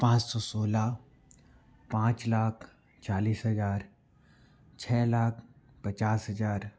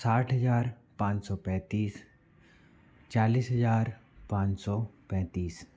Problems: background sounds at intervals